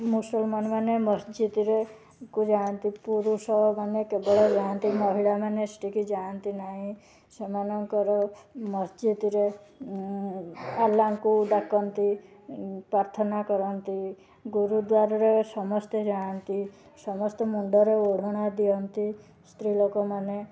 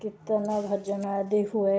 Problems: constant background noise, continuous background conversations